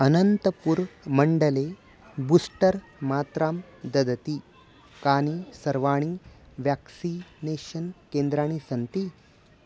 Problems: constant background noise